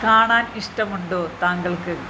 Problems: constant background noise